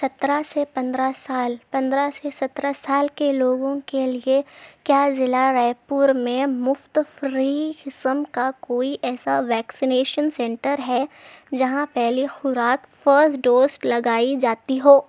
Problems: constant background noise